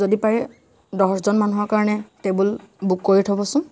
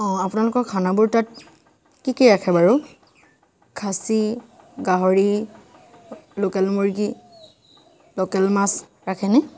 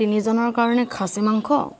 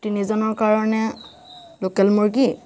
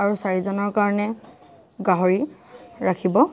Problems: none marked